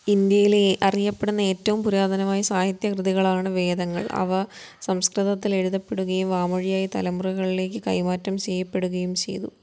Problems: none marked